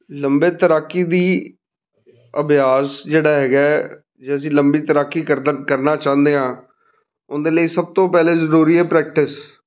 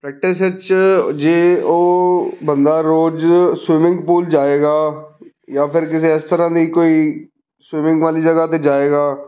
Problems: background conversations at intervals